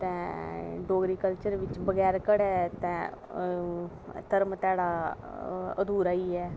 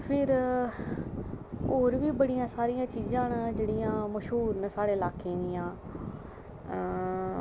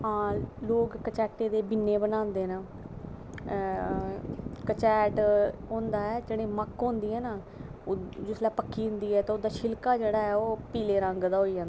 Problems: background sounds at intervals